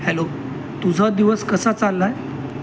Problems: constant background noise